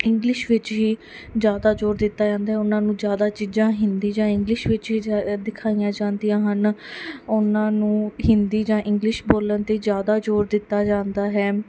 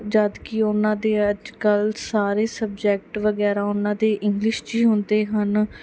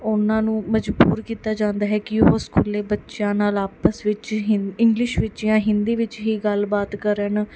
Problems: background sounds at intervals